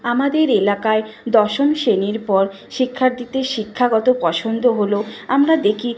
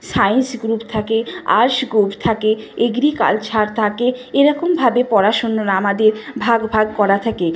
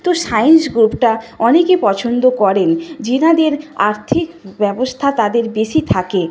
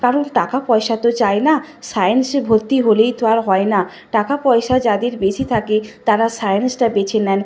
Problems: constant background noise